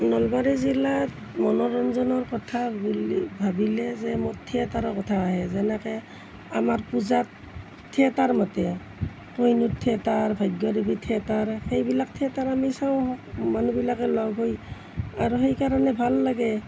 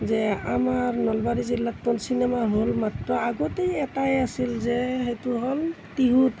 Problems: none marked